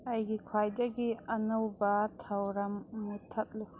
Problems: background sounds at intervals